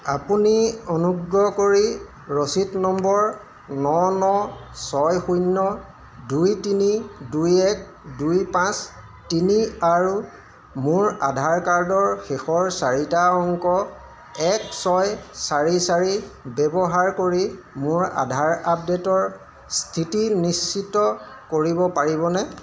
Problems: constant background noise, background conversations at intervals